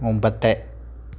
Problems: constant background noise